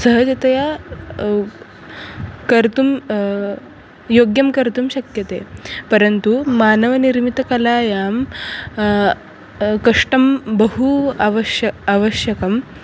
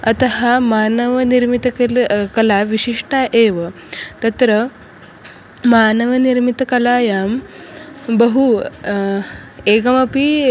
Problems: constant background noise